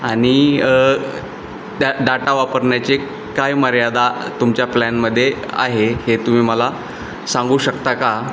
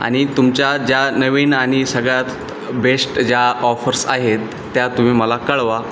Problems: constant background noise